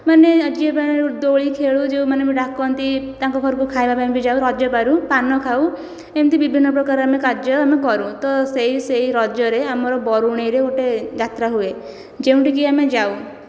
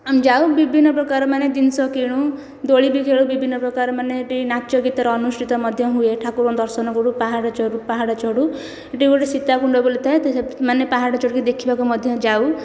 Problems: none marked